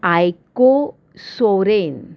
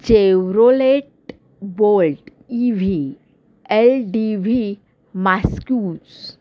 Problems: constant background noise